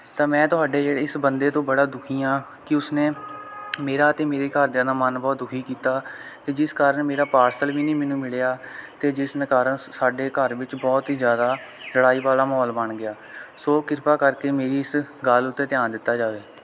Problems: none marked